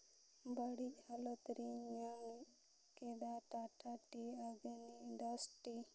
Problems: background sounds at intervals, low volume